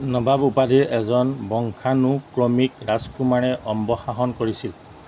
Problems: none marked